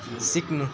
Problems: constant background noise